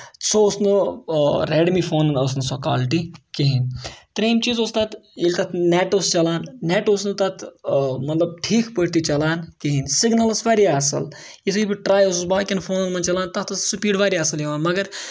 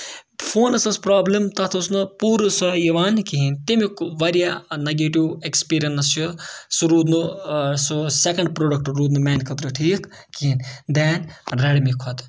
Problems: none marked